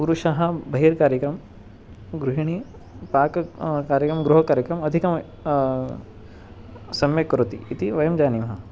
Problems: none marked